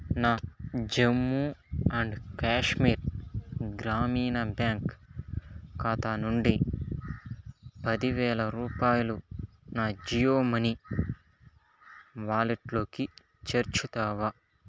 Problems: constant background noise